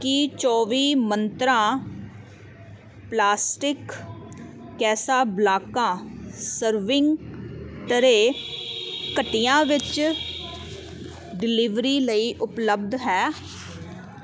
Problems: constant background noise